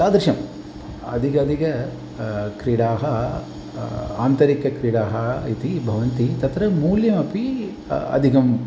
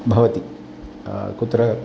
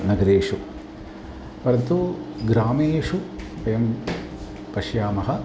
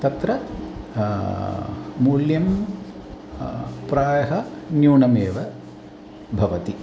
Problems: constant background noise